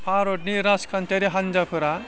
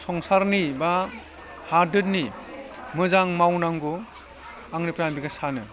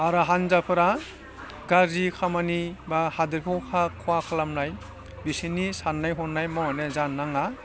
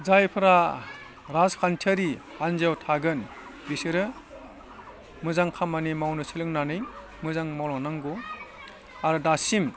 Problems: background conversations at intervals